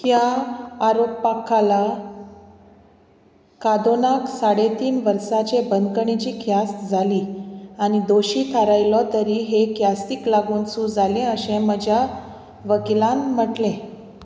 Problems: constant background noise